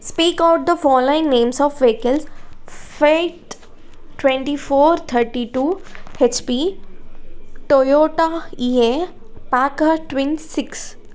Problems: none marked